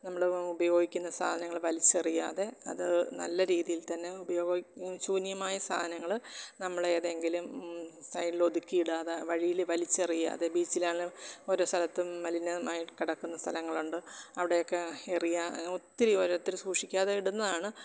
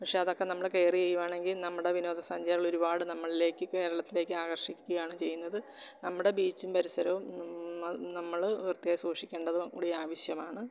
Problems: background sounds at intervals